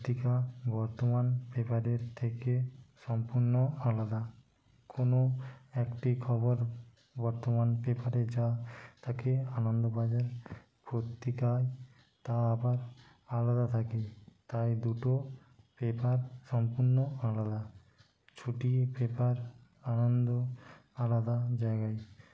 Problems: constant background noise, low volume